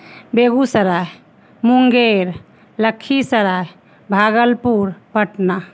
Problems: constant background noise